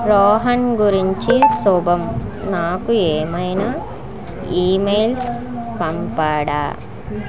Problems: continuous background conversations